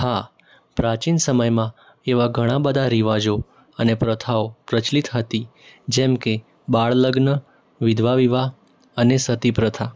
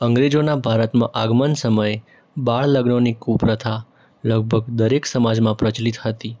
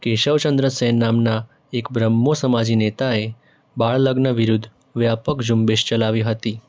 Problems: background sounds at intervals